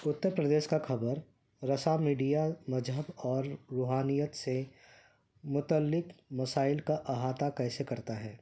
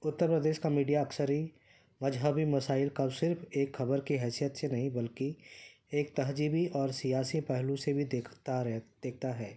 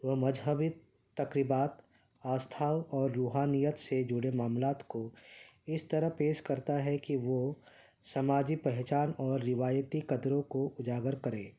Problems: none marked